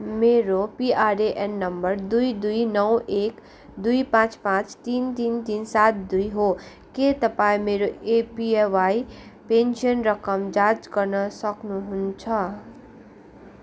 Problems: none marked